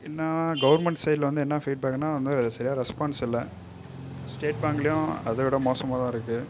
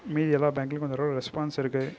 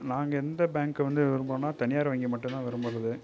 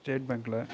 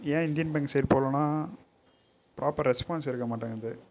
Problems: background sounds at intervals, low volume